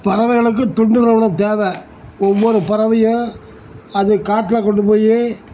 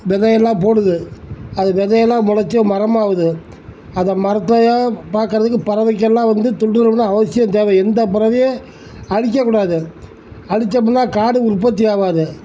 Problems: background sounds at intervals